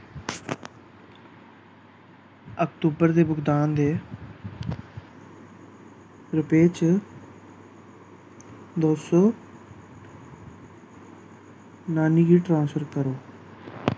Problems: constant background noise